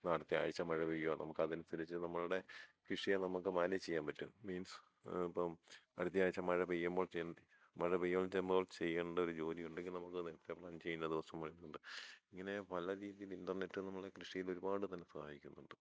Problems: none marked